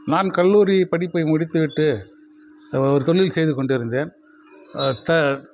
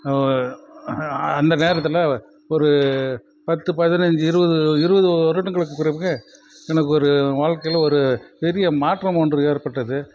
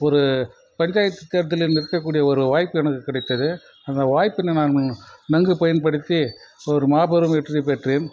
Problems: background sounds at intervals